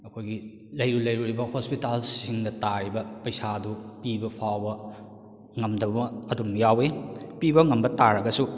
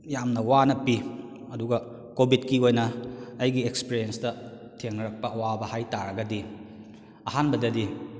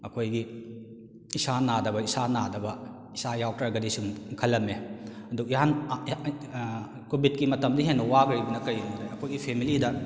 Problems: echo